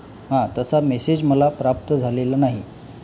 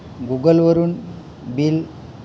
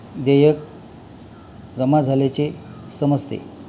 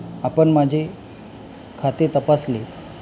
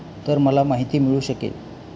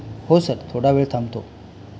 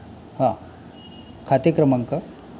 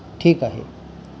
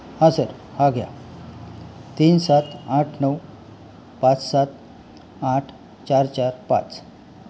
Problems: background sounds at intervals